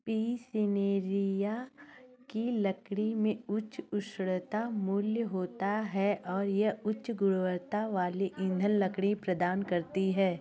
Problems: constant background noise